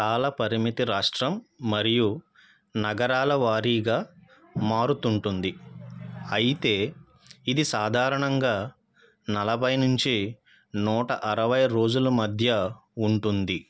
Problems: none marked